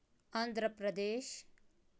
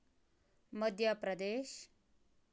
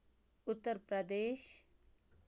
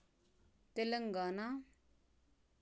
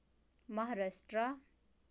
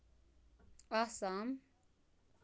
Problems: background sounds at intervals, low volume